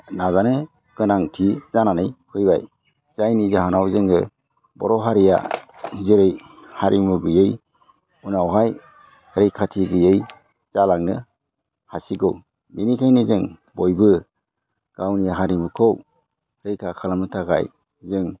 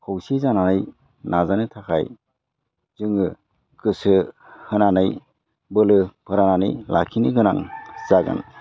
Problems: low volume